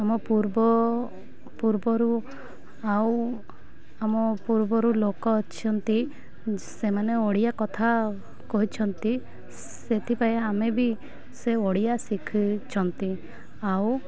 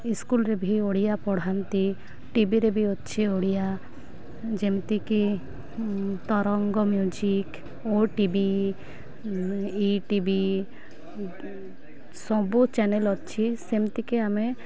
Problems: low volume